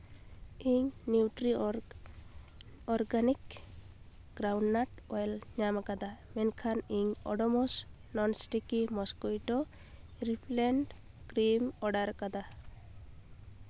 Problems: none marked